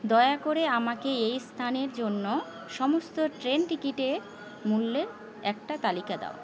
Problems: none marked